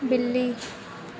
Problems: none marked